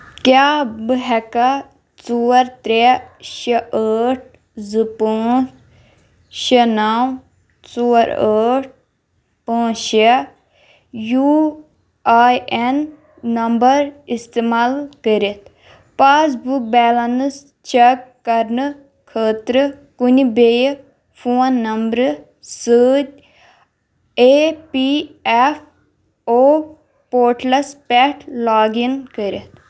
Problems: none marked